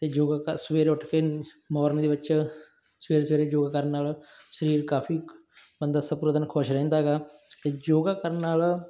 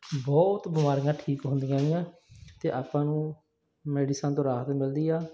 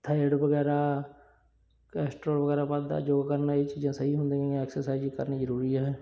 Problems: background sounds at intervals